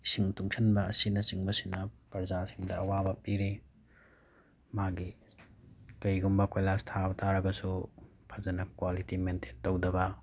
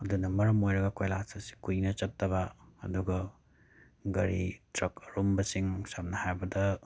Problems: none marked